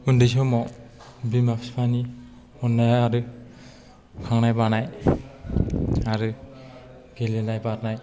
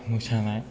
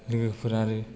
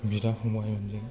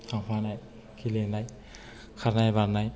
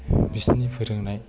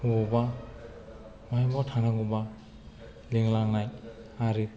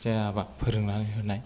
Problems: low volume